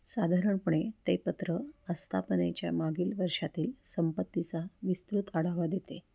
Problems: background sounds at intervals